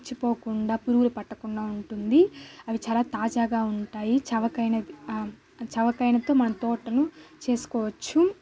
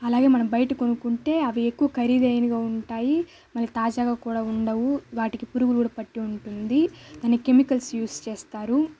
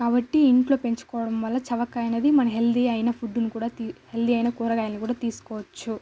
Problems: constant background noise, background conversations at intervals